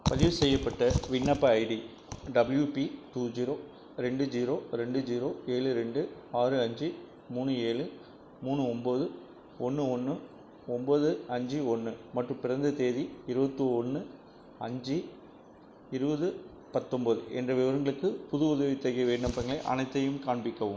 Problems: constant background noise